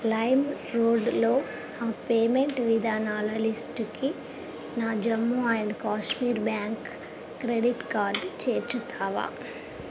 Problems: constant background noise, background conversations at intervals